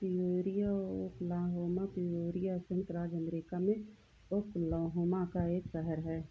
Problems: none marked